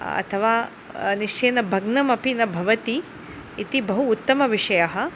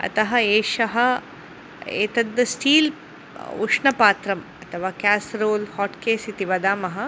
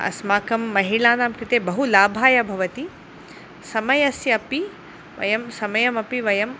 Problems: none marked